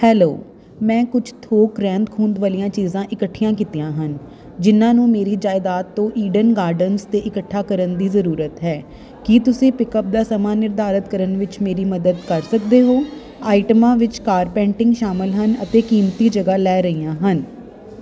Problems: constant background noise